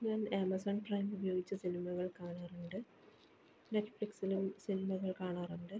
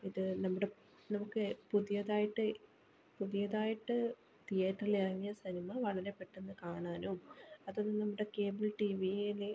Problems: background sounds at intervals, low volume